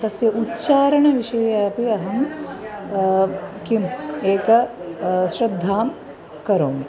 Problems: none marked